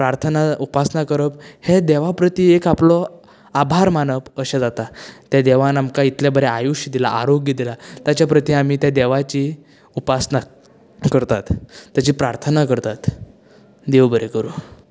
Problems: none marked